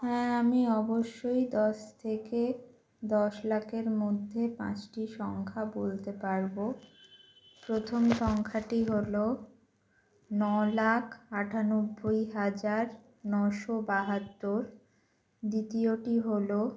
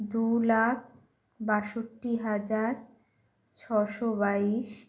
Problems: constant background noise